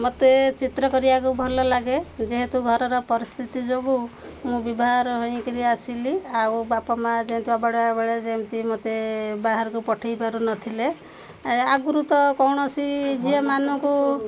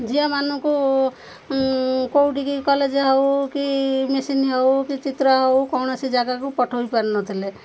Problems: constant background noise, background conversations at intervals